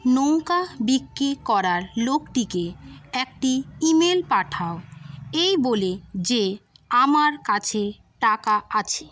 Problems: constant background noise